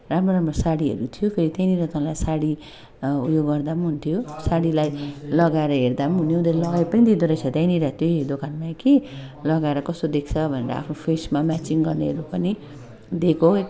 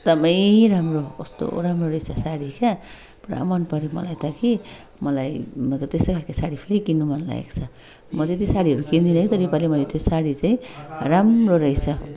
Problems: continuous background conversations